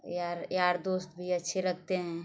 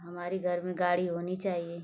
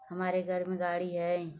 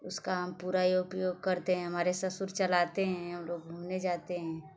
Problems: constant background noise